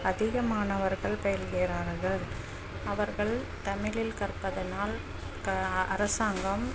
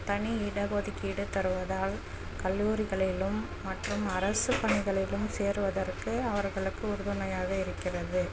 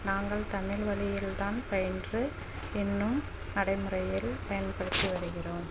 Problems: constant background noise, low volume